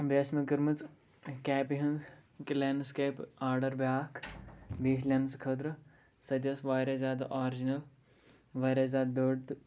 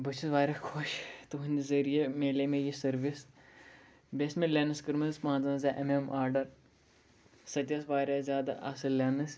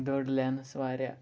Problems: background sounds at intervals